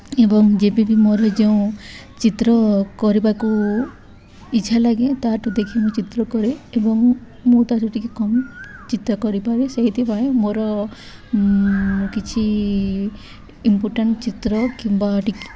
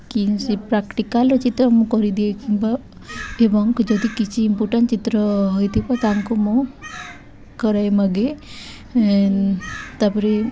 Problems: background sounds at intervals, background conversations at intervals